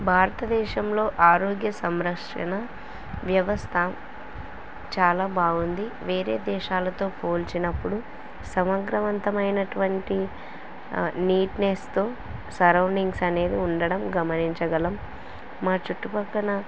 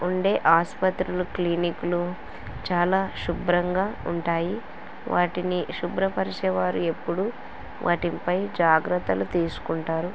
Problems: constant background noise